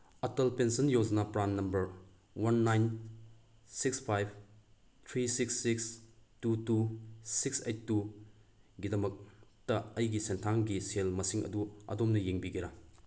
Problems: none marked